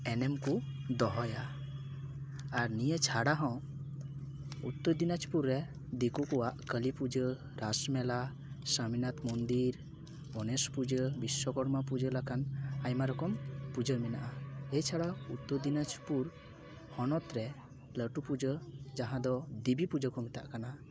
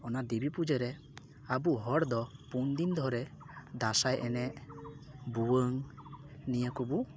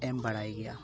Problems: none marked